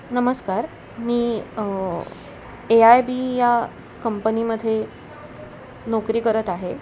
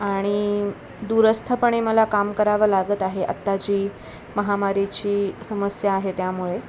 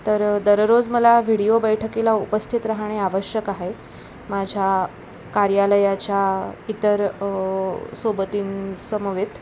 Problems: constant background noise